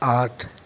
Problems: background sounds at intervals